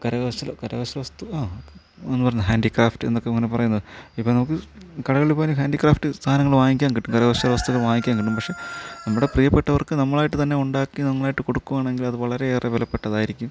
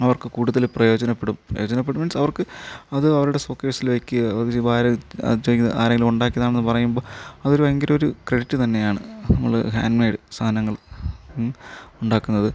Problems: low volume